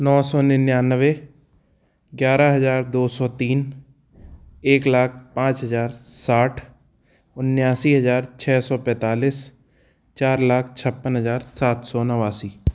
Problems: background sounds at intervals